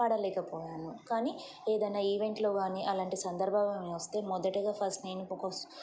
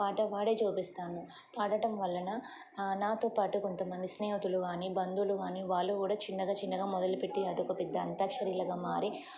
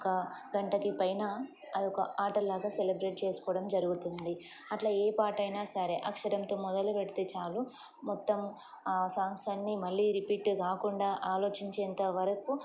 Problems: constant background noise